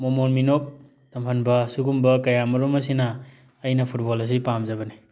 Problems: none marked